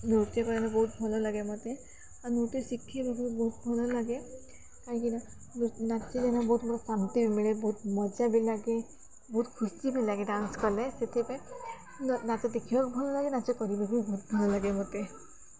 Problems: none marked